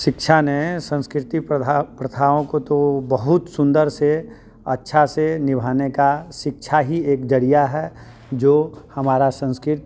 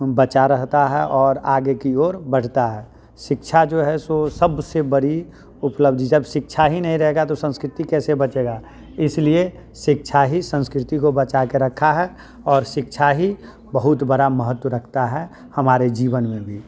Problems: constant background noise, continuous background conversations